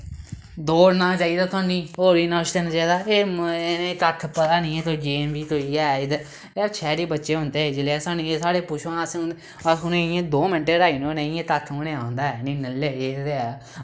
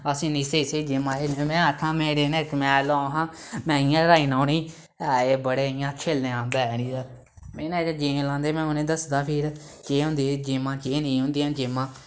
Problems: background sounds at intervals